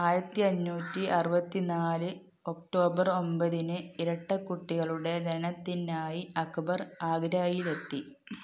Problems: none marked